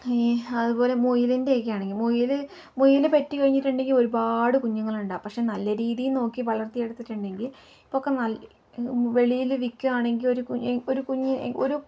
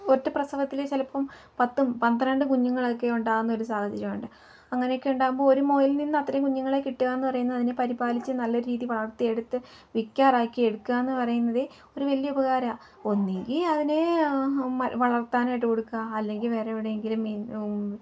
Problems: low volume